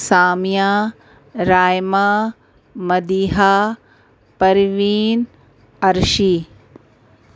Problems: constant background noise